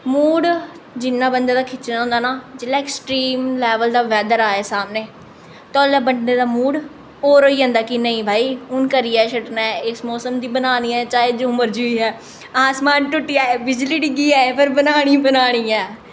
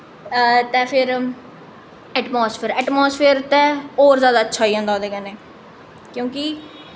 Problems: echo